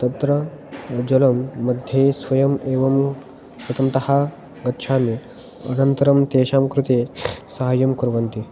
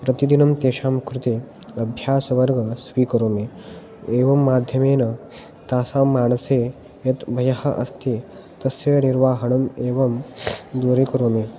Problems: none marked